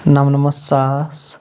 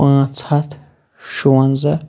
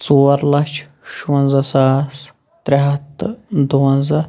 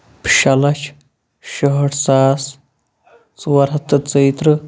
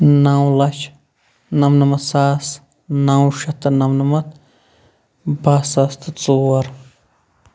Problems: background sounds at intervals